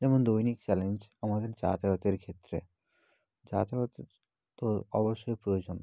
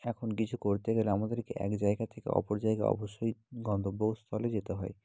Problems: none marked